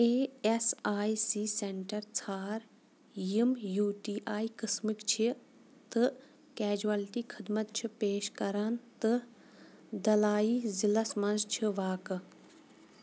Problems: background sounds at intervals